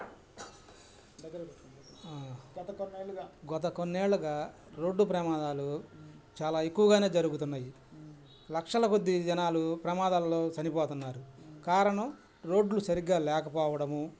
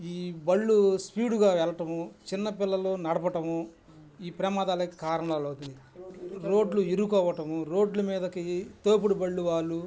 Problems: background sounds at intervals, background conversations at intervals